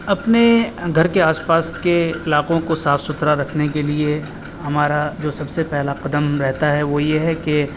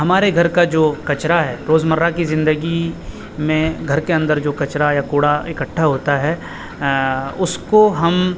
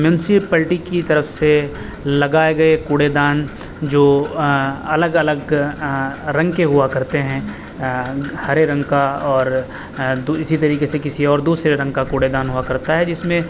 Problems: constant background noise